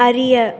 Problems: none marked